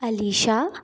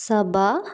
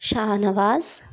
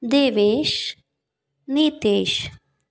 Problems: background sounds at intervals